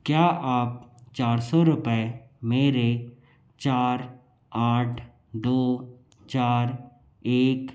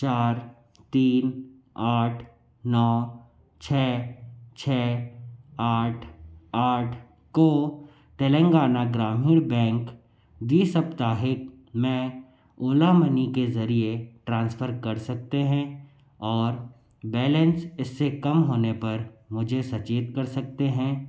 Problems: low volume